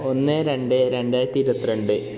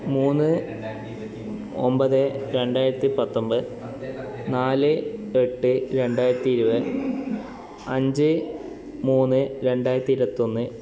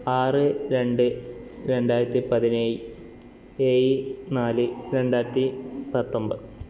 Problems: constant background noise, continuous background conversations